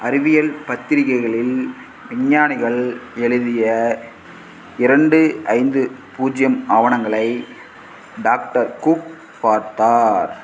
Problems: background sounds at intervals